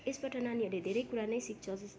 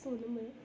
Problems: continuous background conversations